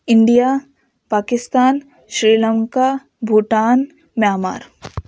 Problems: none marked